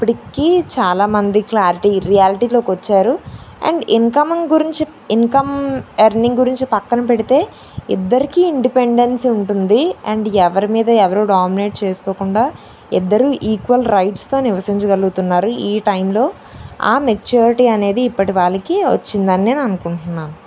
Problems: none marked